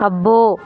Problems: constant background noise